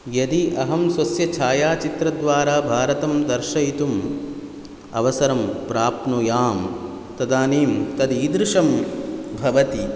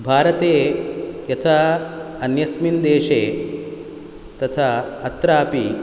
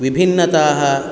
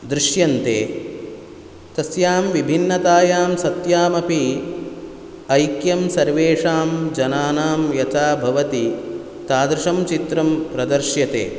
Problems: none marked